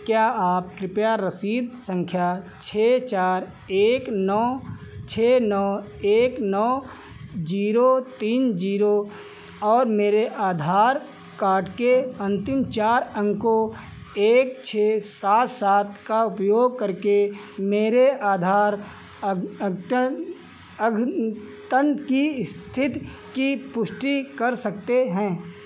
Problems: constant background noise